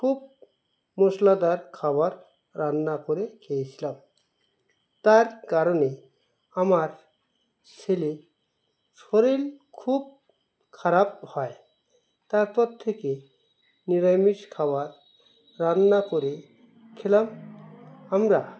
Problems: constant background noise